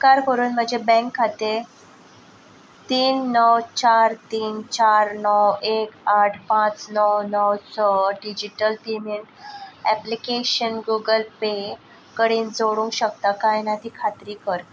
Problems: constant background noise